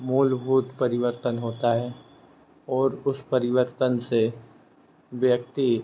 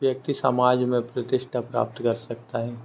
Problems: constant background noise